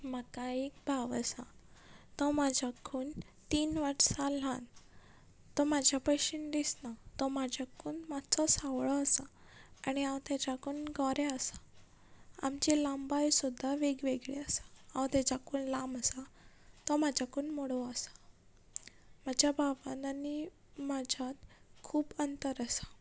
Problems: background conversations at intervals